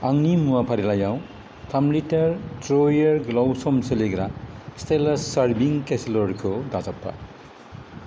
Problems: none marked